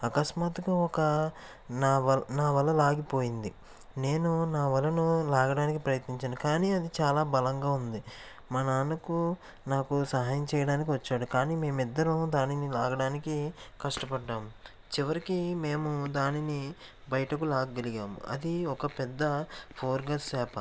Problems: constant background noise